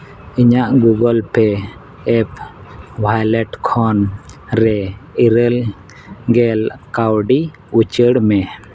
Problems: constant background noise